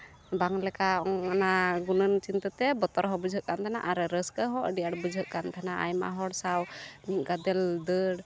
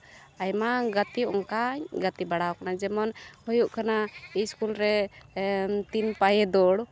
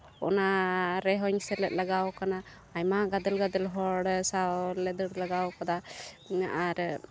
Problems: none marked